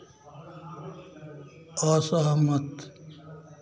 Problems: constant background noise